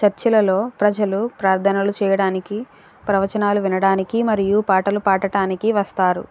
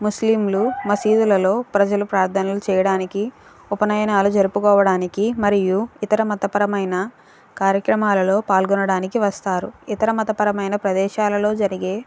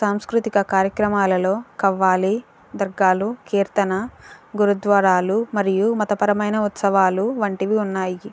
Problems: background sounds at intervals